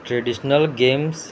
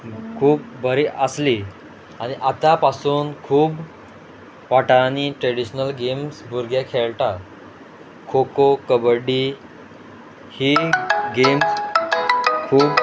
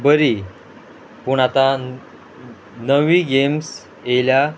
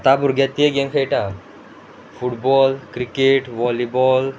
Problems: background sounds at intervals